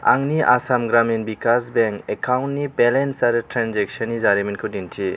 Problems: constant background noise